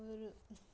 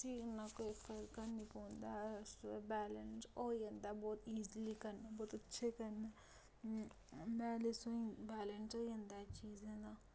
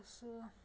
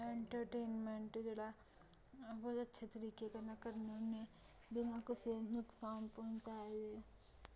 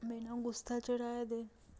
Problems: low volume